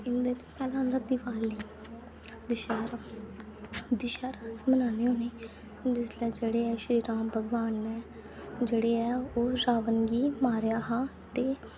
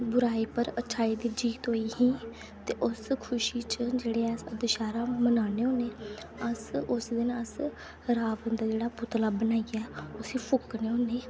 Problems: constant background noise, low volume